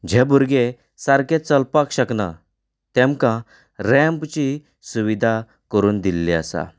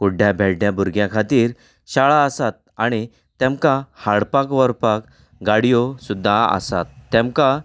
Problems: none marked